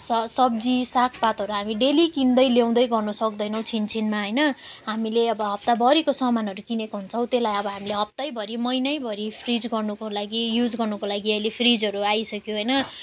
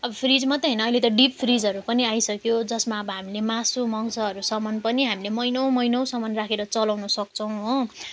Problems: none marked